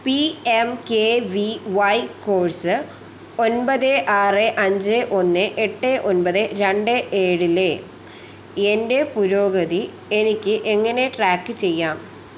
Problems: constant background noise